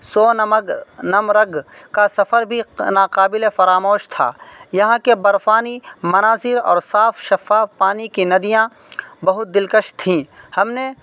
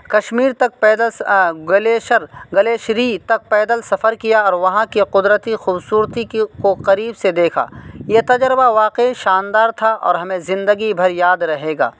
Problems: constant background noise